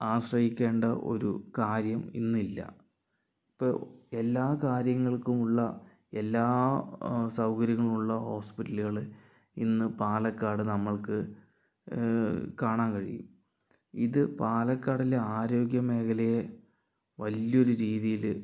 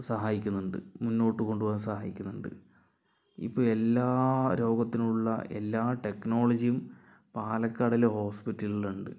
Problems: none marked